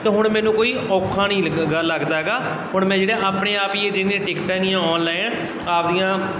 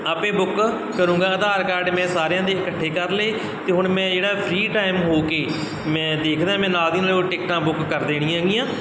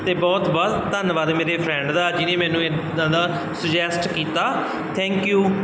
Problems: none marked